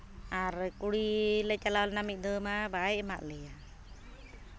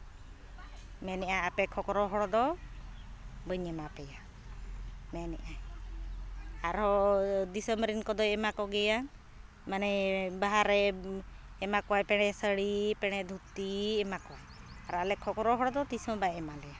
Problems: background sounds at intervals, continuous background conversations